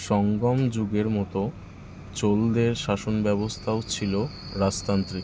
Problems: constant background noise